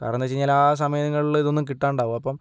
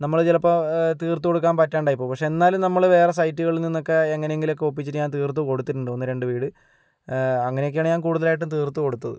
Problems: none marked